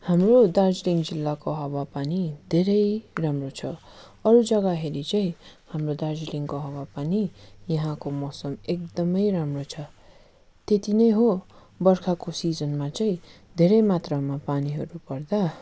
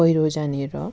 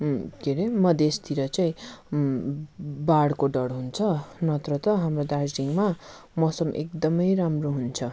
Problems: none marked